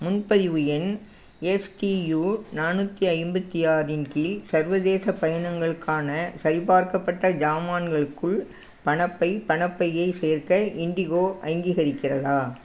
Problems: background sounds at intervals